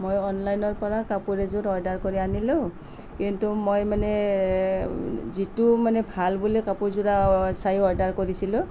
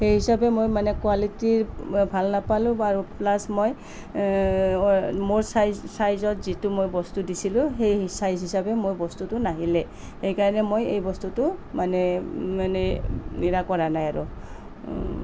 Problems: none marked